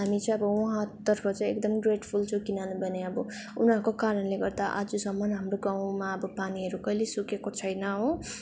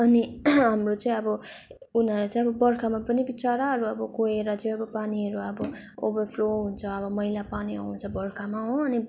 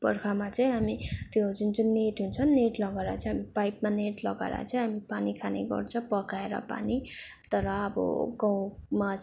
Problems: background sounds at intervals